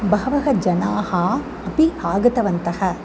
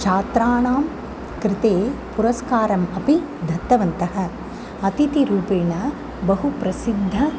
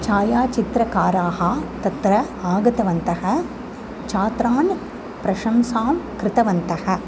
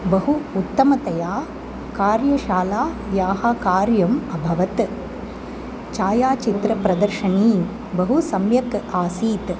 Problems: constant background noise